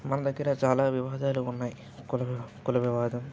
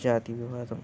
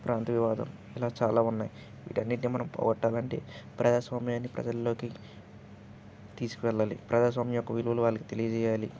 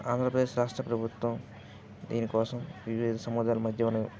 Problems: continuous background conversations